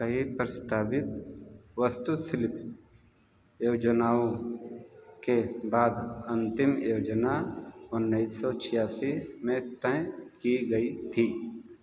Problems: background sounds at intervals